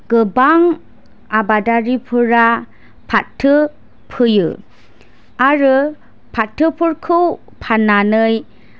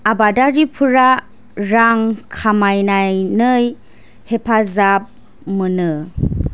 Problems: none marked